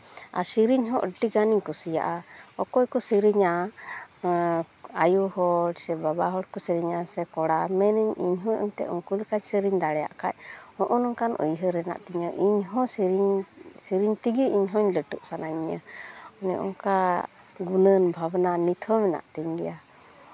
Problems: constant background noise, continuous background conversations